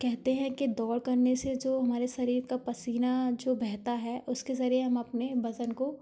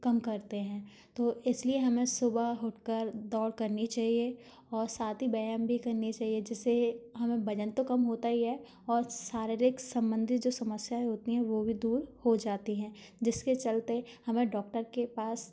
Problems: background sounds at intervals, background conversations at intervals